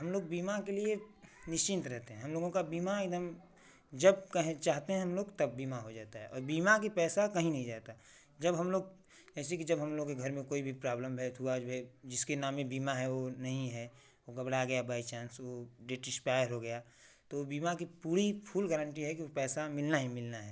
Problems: constant background noise